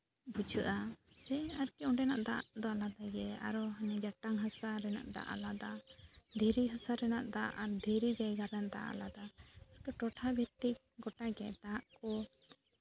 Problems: background sounds at intervals